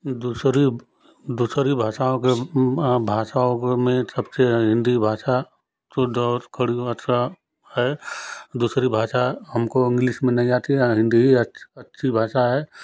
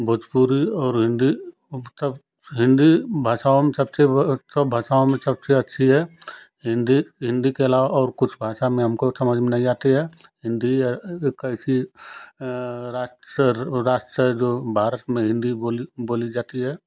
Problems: constant background noise